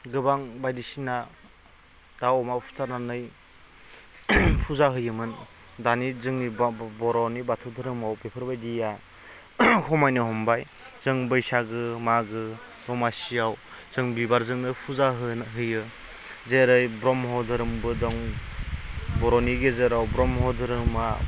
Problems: none marked